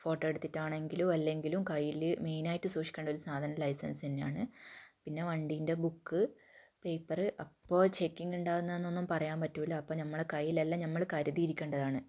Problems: low volume